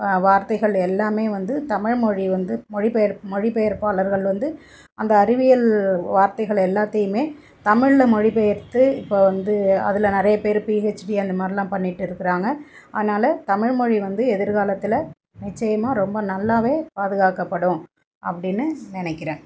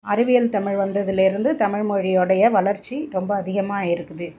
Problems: background sounds at intervals